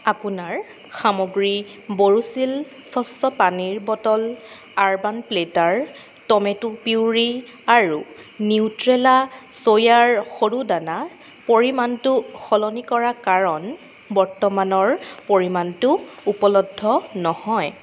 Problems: constant background noise